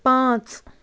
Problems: constant background noise